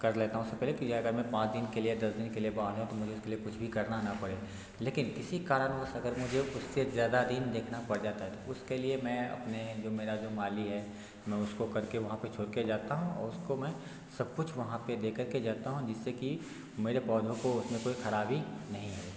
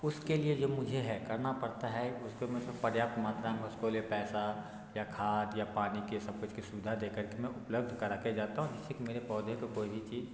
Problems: none marked